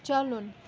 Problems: none marked